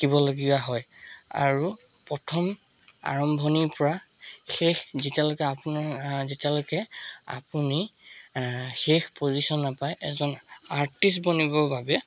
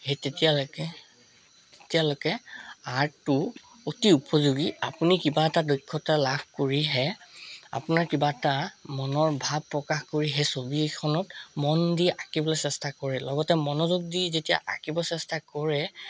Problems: constant background noise